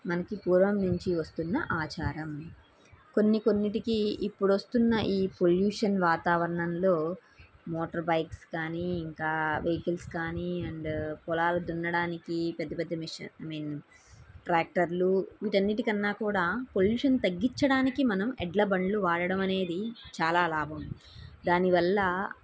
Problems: none marked